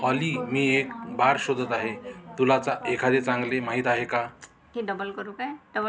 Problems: background sounds at intervals, continuous background conversations